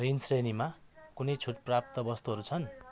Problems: constant background noise